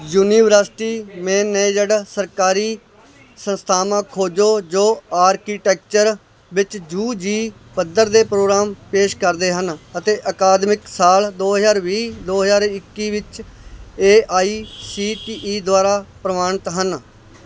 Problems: background sounds at intervals